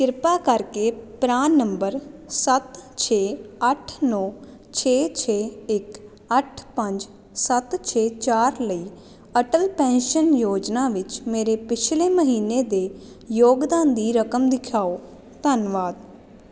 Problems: constant background noise